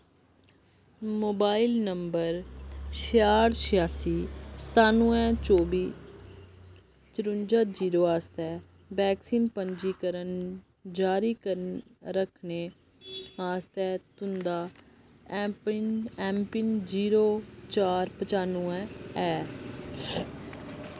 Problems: constant background noise